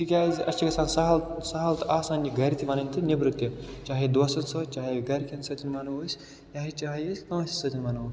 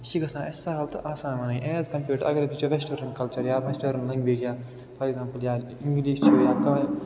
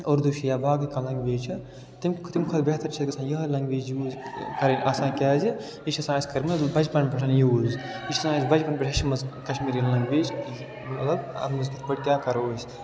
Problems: constant background noise